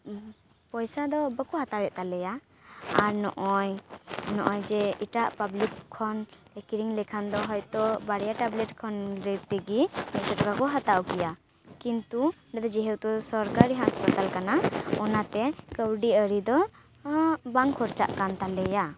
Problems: background sounds at intervals